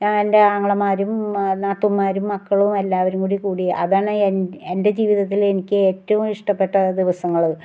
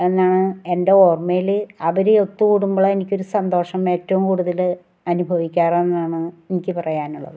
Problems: none marked